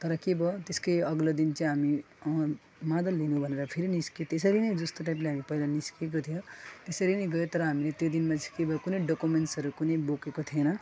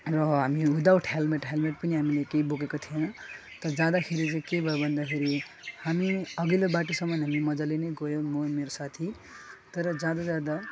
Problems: constant background noise, background conversations at intervals, low volume